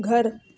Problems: constant background noise